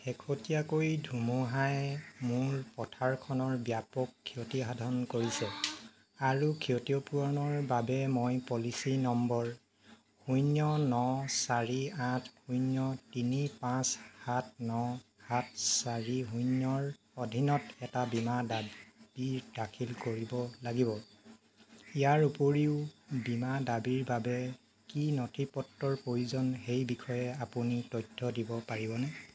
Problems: constant background noise